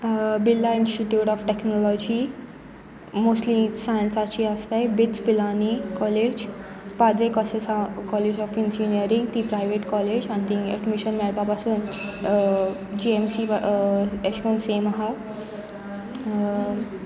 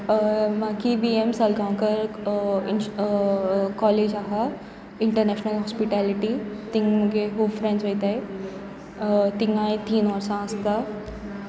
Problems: background sounds at intervals